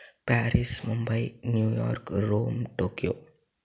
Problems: constant background noise, low volume